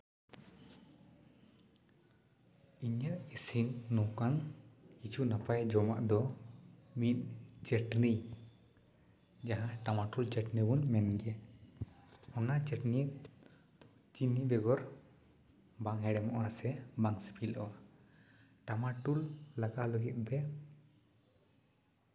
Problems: constant background noise, echo